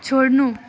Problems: background sounds at intervals